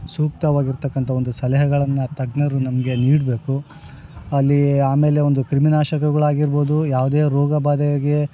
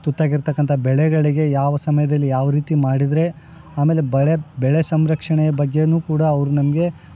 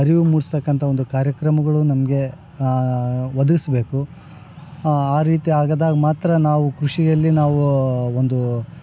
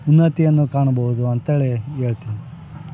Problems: none marked